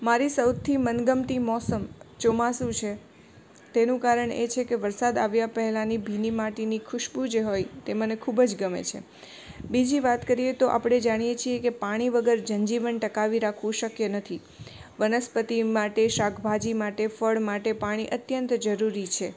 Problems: background sounds at intervals